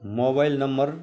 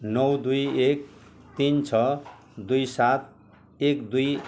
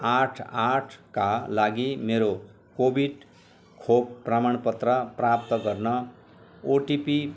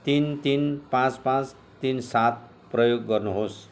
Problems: background conversations at intervals